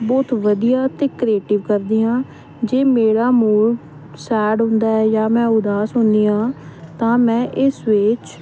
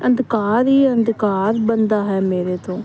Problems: none marked